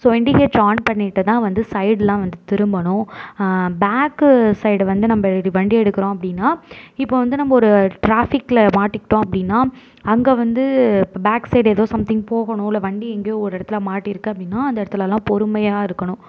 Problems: none marked